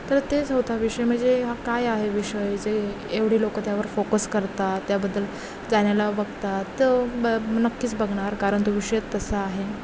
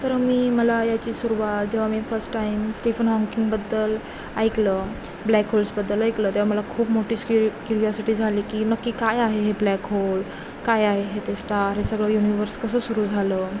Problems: constant background noise